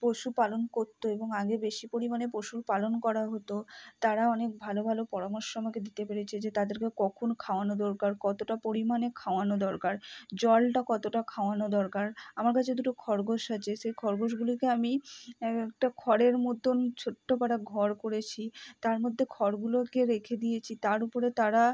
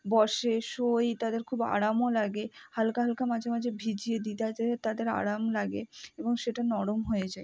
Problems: none marked